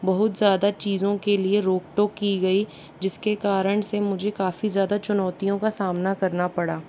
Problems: none marked